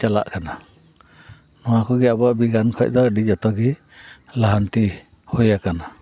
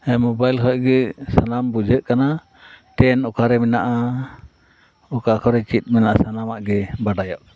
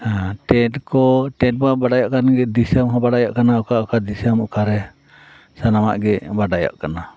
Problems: background conversations at intervals